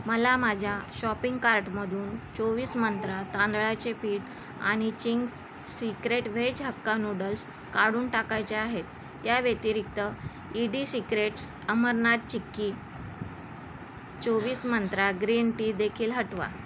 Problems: constant background noise